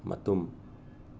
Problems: none marked